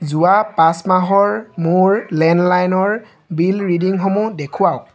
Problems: none marked